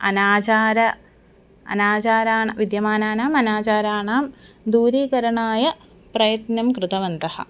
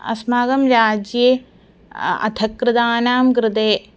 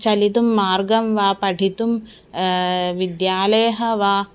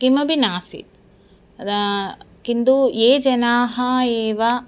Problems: constant background noise